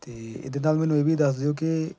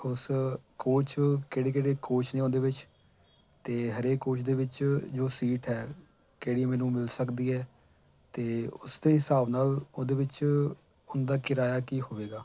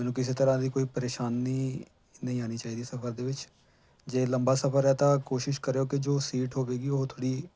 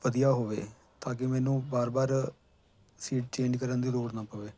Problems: none marked